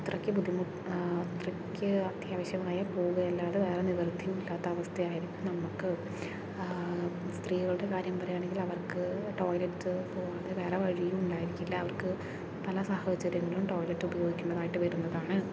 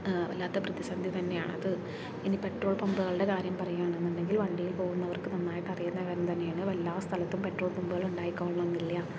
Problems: low volume